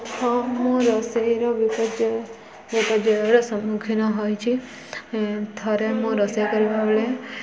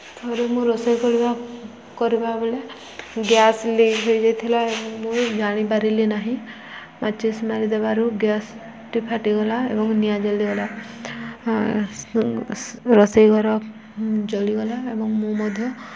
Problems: constant background noise, continuous background conversations